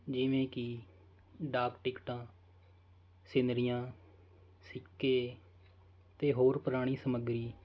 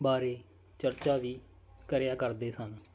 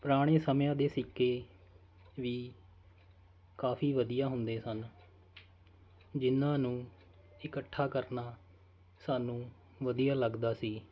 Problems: constant background noise